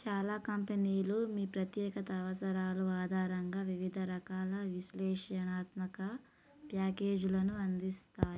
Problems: low volume